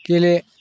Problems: none marked